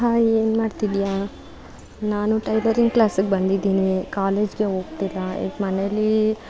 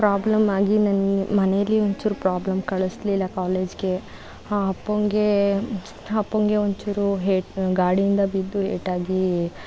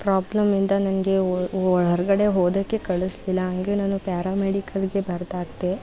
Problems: background sounds at intervals